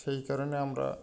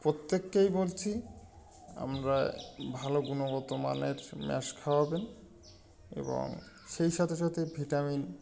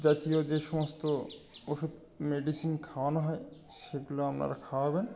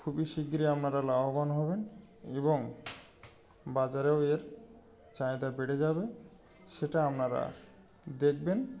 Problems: constant background noise